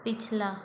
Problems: constant background noise